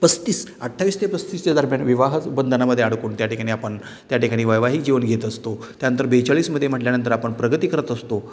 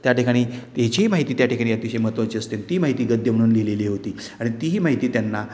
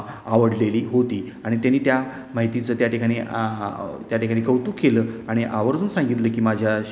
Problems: none marked